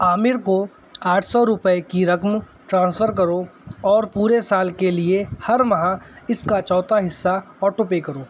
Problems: none marked